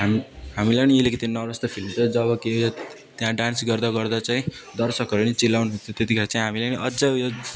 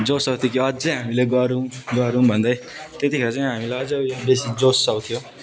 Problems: none marked